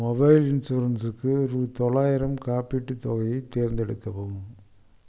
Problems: low volume